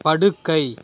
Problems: constant background noise